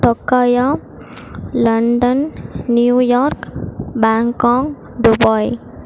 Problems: constant background noise